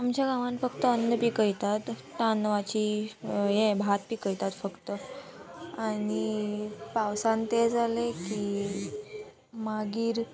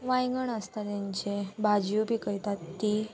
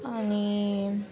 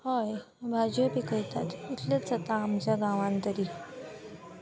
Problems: constant background noise